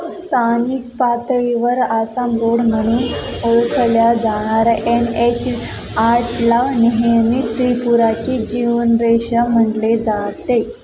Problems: none marked